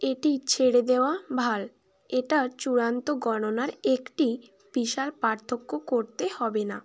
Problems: none marked